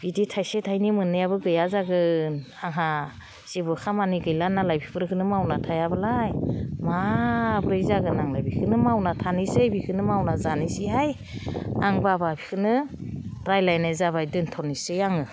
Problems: none marked